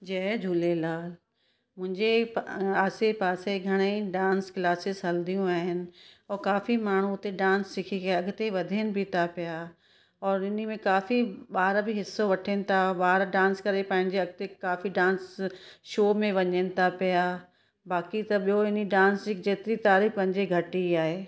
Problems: none marked